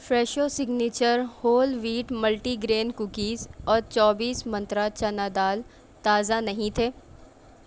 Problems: none marked